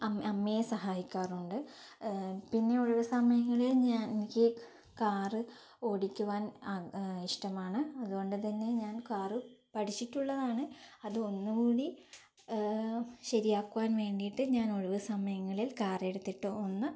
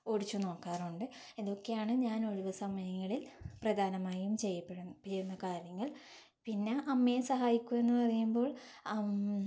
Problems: none marked